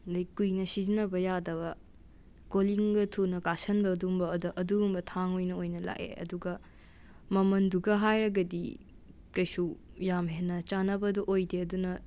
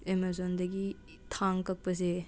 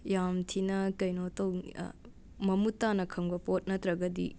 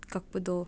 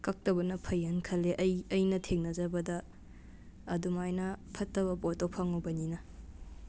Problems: none marked